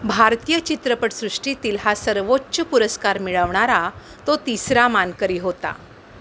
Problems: background sounds at intervals